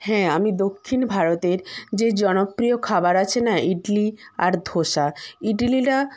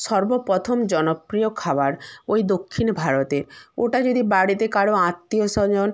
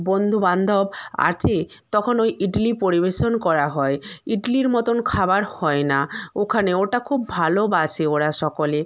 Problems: constant background noise